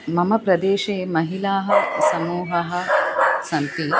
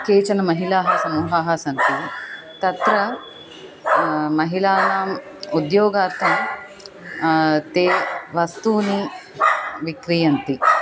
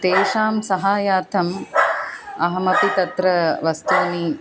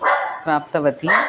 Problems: constant background noise